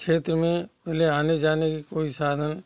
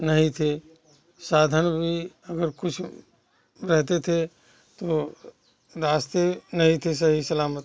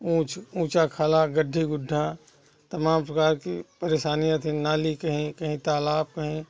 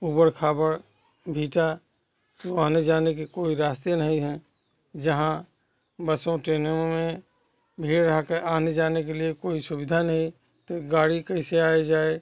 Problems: constant background noise, continuous background conversations